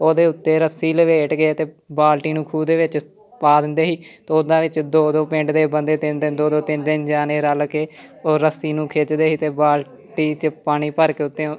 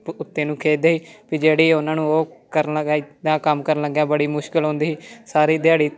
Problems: background sounds at intervals, continuous background conversations